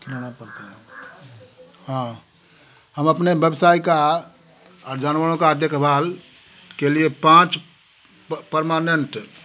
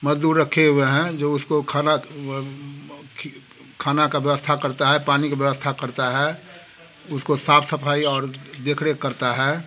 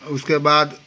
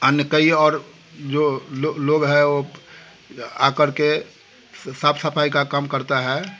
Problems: constant background noise